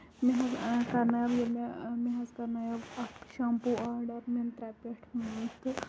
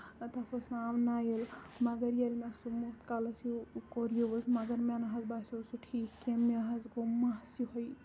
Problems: constant background noise, low volume